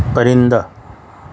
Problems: constant background noise